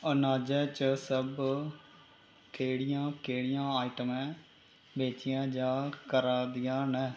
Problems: constant background noise